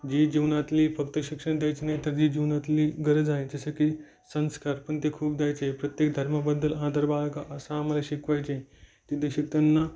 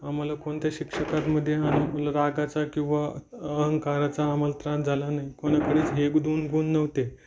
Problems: none marked